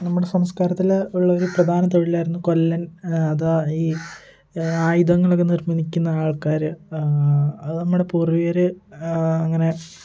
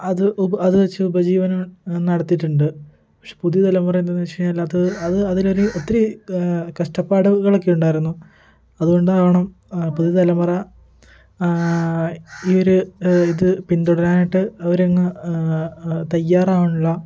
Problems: background sounds at intervals